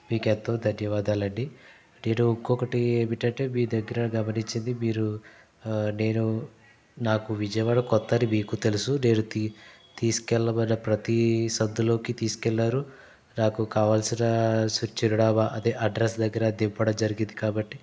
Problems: none marked